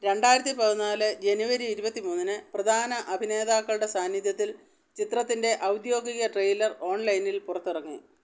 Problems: background sounds at intervals